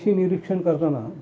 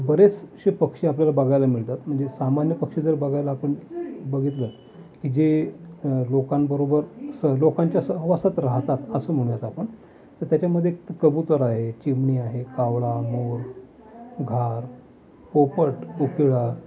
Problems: continuous background conversations